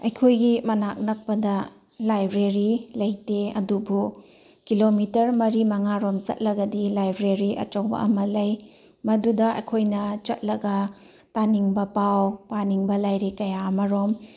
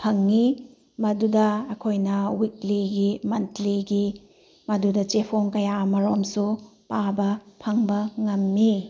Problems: background sounds at intervals